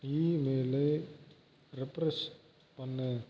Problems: low volume